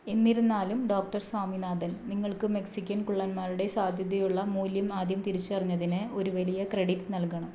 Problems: low volume